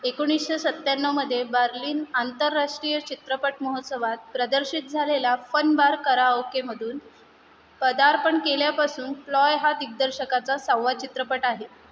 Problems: none marked